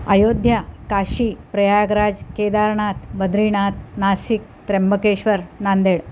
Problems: none marked